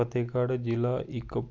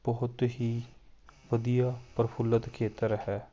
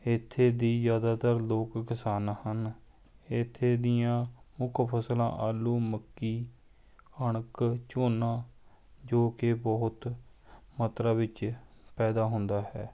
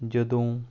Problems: none marked